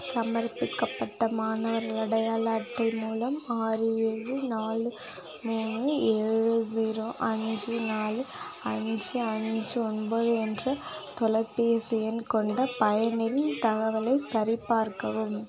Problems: continuous background conversations